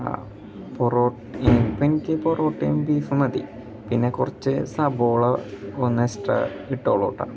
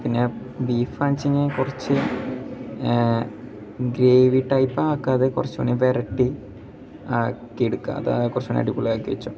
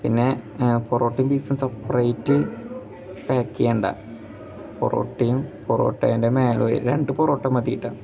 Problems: background sounds at intervals